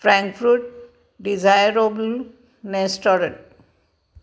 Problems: none marked